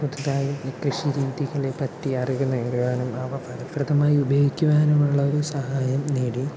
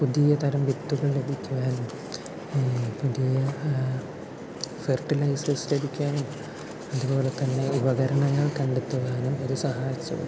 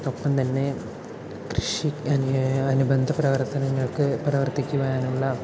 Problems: constant background noise, low volume